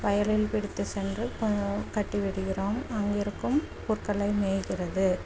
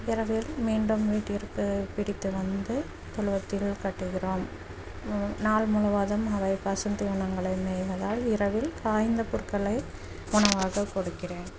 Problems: constant background noise, low volume